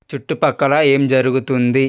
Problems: none marked